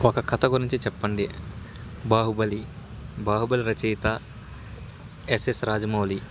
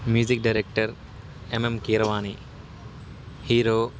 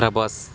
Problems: constant background noise